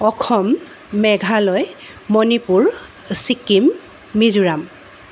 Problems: constant background noise